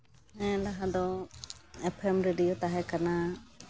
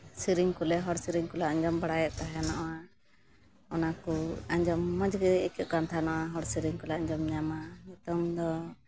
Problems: background sounds at intervals